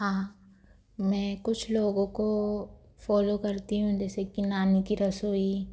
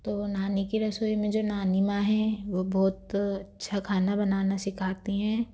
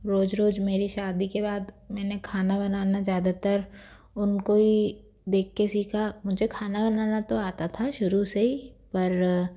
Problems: none marked